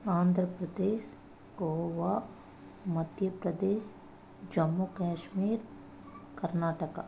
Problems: constant background noise